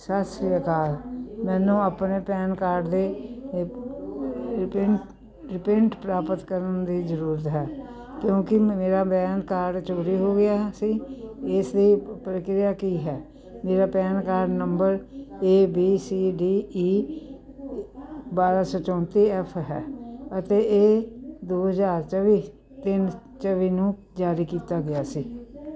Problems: none marked